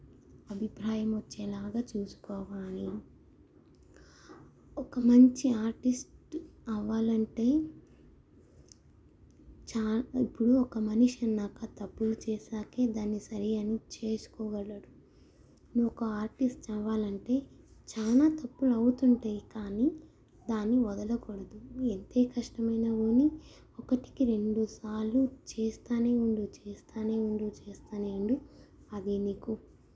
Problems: low volume